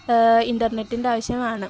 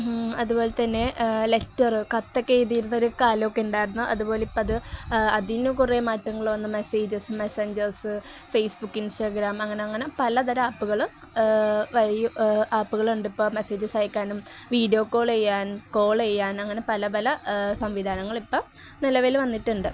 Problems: none marked